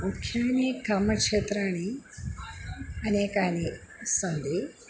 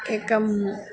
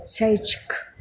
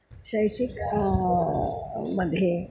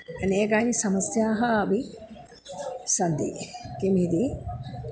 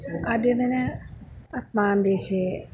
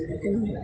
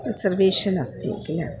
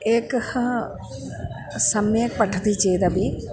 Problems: background sounds at intervals